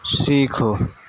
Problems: constant background noise